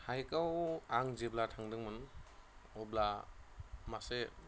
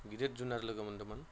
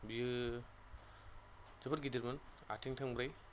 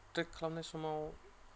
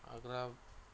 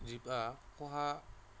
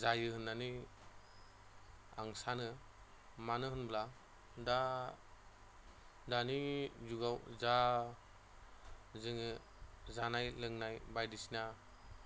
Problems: none marked